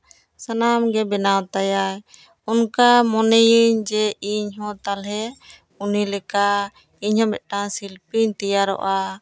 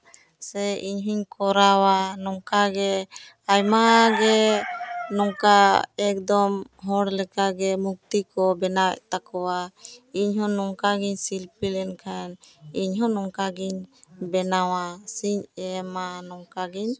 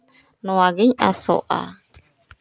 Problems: none marked